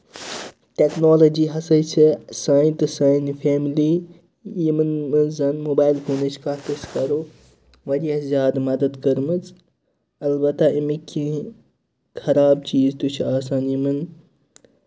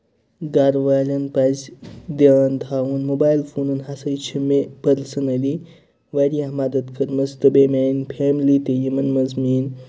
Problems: none marked